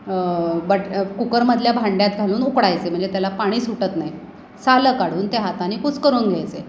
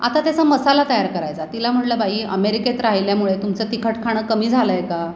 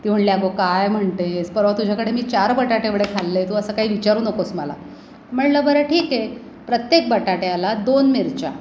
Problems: none marked